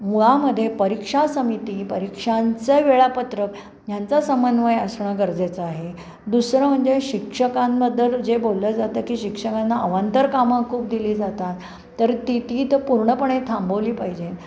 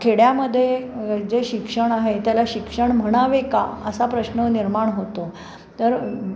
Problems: none marked